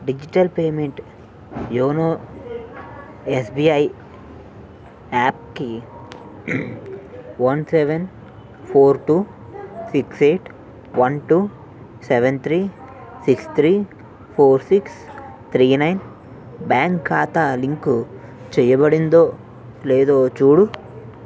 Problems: background conversations at intervals